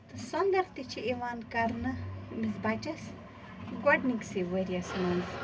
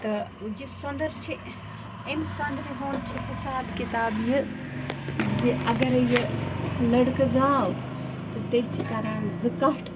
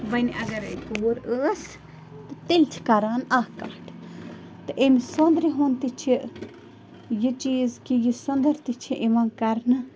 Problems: constant background noise, low volume